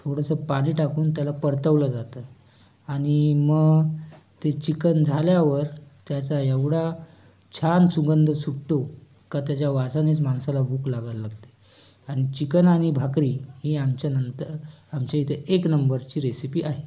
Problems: constant background noise, background conversations at intervals